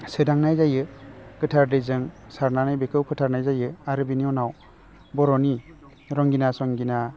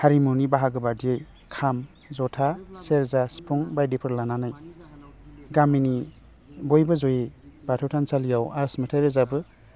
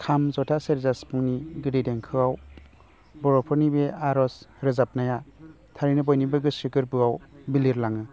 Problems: constant background noise